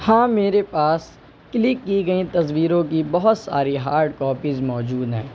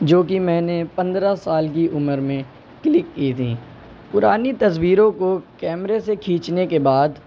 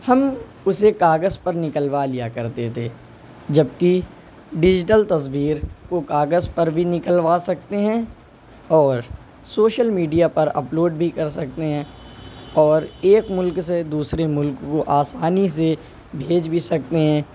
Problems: none marked